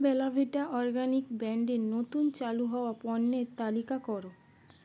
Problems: constant background noise